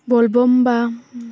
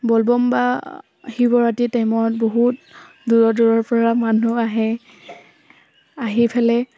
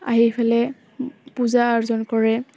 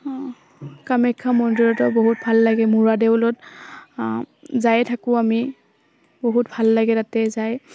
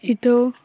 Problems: none marked